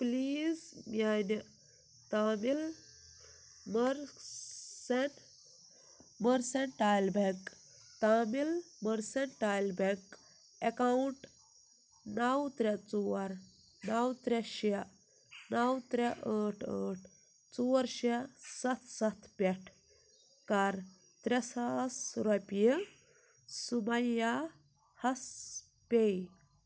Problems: none marked